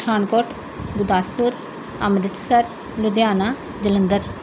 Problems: constant background noise